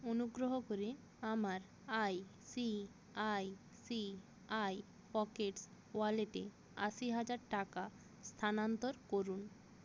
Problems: background sounds at intervals